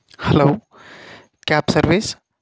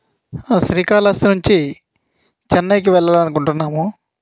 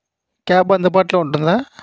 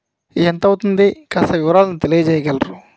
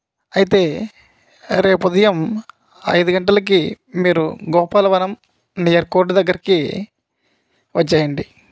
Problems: none marked